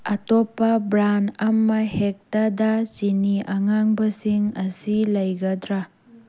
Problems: constant background noise